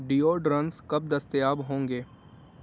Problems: constant background noise, low volume